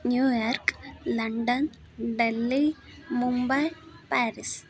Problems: continuous background conversations